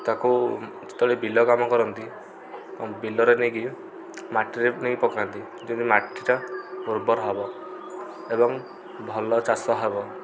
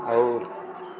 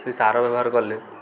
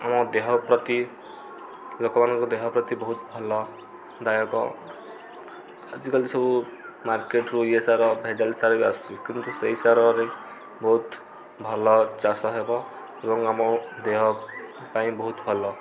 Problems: constant background noise